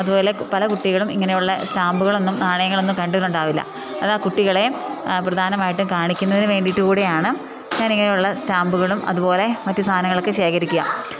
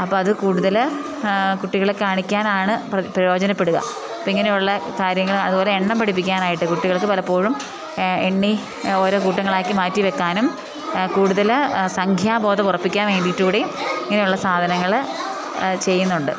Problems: background sounds at intervals